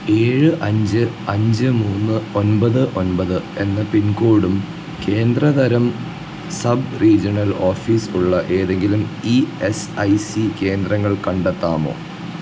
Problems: constant background noise, low volume